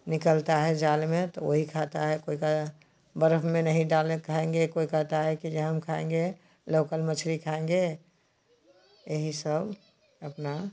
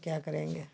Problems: constant background noise